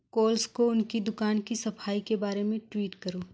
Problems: background sounds at intervals